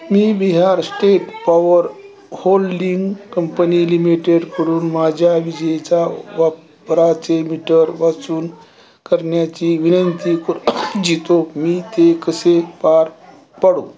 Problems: continuous background conversations